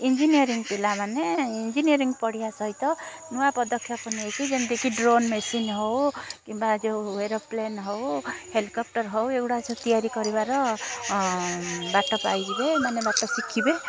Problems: constant background noise, continuous background conversations